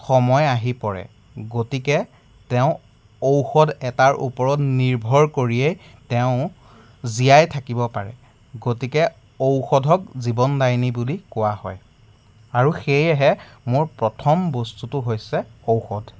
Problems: background sounds at intervals